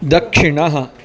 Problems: constant background noise, background conversations at intervals